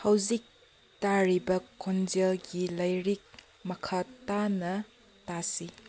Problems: background sounds at intervals